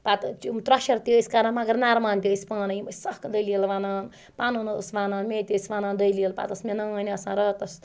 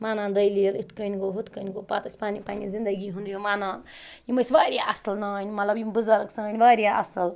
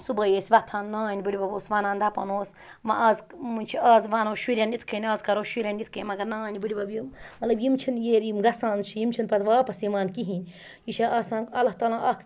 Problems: background sounds at intervals